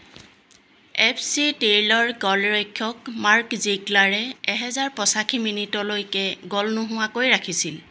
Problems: constant background noise